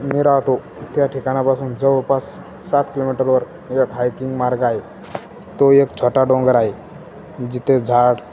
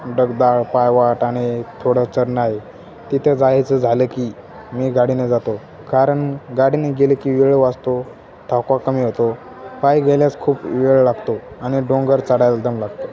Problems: constant background noise